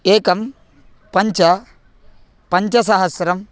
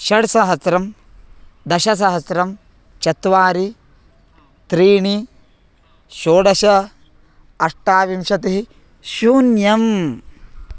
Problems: constant background noise